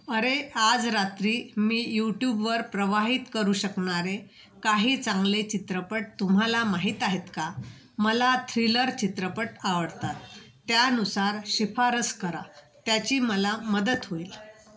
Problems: constant background noise